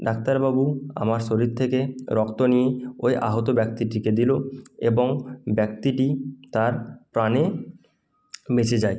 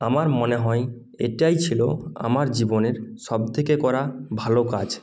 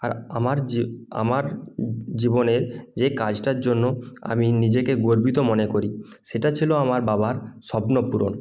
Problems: none marked